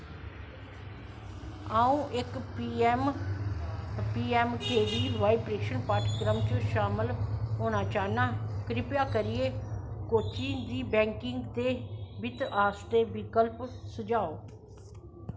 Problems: low volume